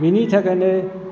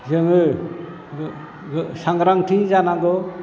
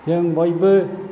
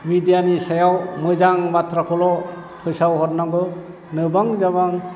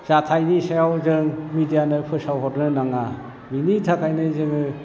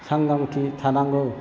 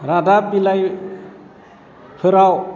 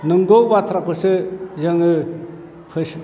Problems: constant background noise